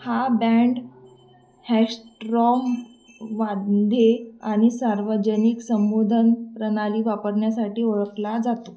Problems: none marked